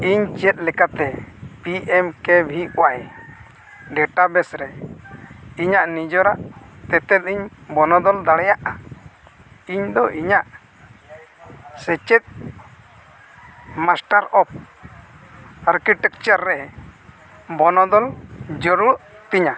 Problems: constant background noise, continuous background conversations